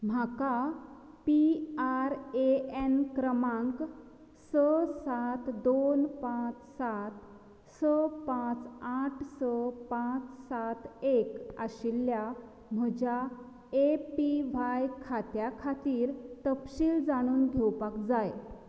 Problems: low volume